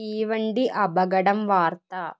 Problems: low volume